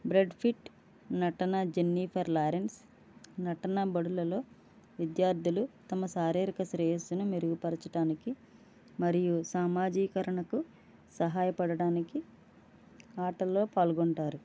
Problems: low volume